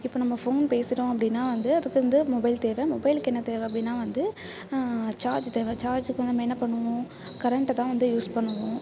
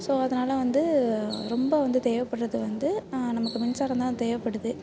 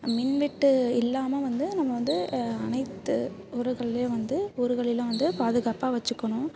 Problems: constant background noise